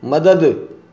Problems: none marked